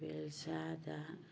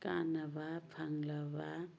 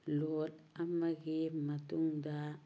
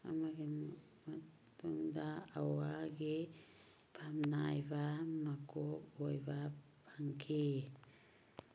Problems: background sounds at intervals